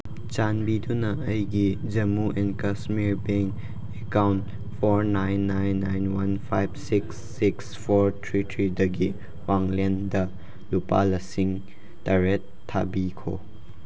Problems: constant background noise